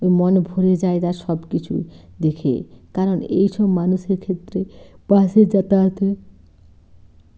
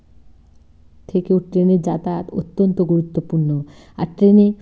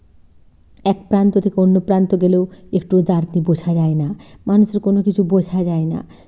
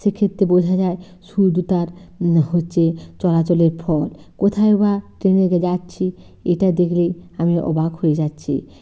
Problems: constant background noise, low volume